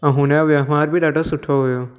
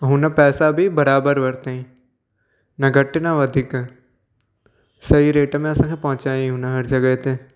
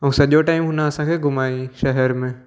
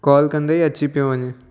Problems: none marked